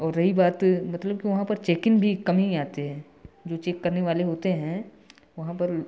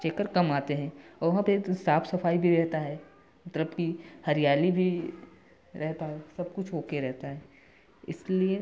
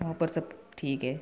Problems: background sounds at intervals, continuous background conversations